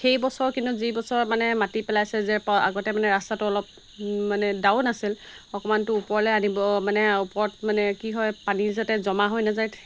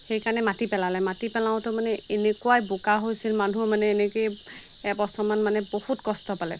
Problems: constant background noise